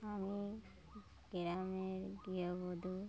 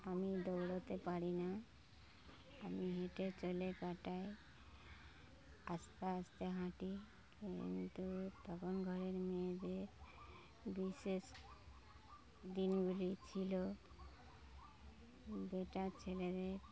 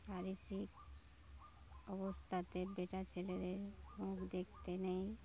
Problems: none marked